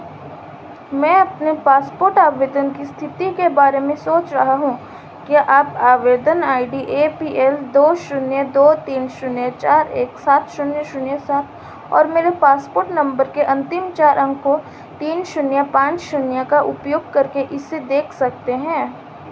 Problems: constant background noise